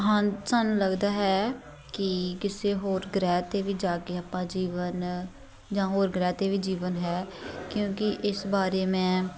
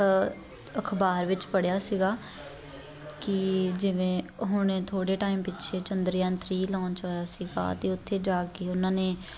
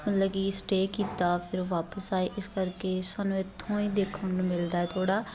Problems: continuous background conversations